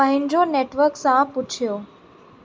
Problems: constant background noise, echo